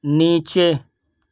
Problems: none marked